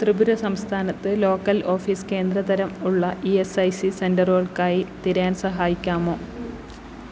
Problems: constant background noise